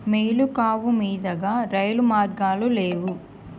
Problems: background sounds at intervals